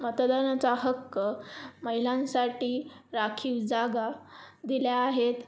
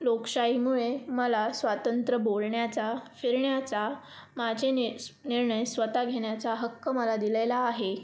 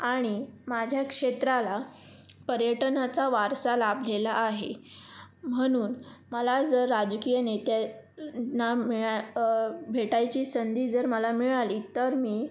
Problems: constant background noise